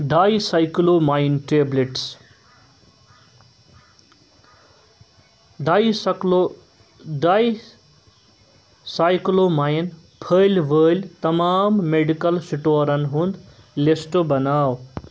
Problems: none marked